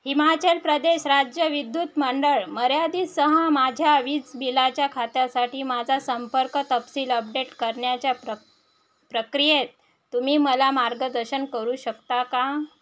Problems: background sounds at intervals